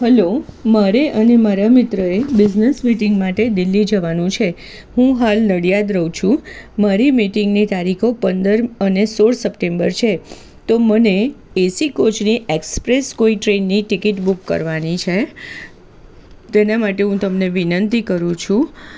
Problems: constant background noise